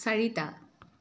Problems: none marked